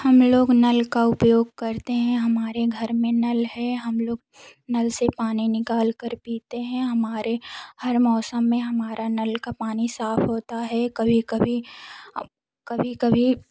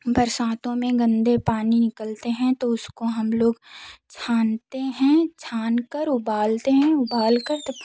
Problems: background sounds at intervals